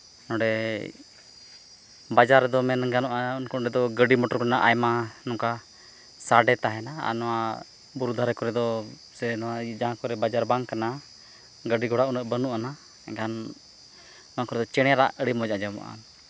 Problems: constant background noise